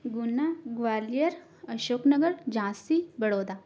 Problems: none marked